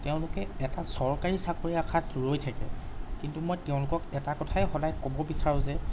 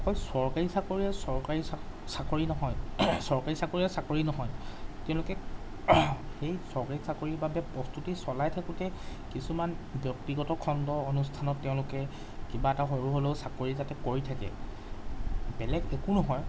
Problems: background sounds at intervals